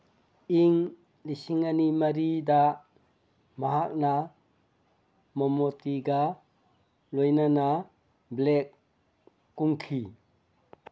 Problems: none marked